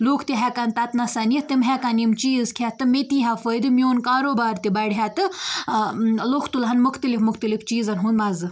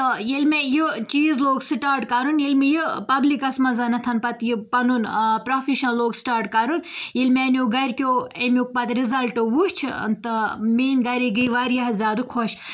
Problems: none marked